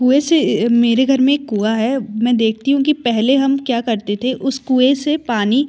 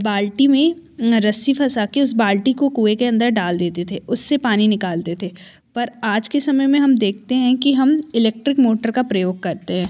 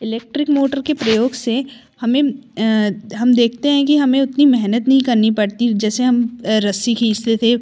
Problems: none marked